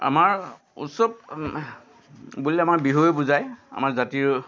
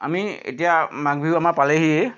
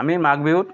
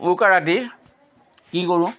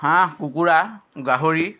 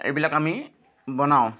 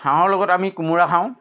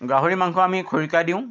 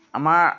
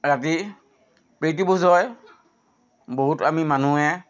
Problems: constant background noise